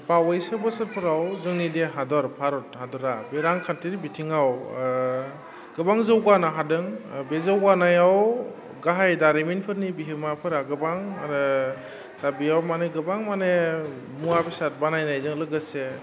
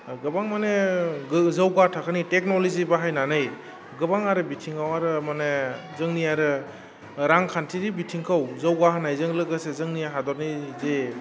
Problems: low volume